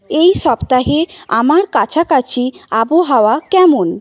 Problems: none marked